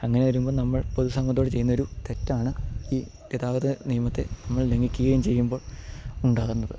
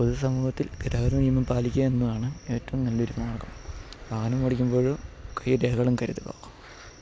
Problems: none marked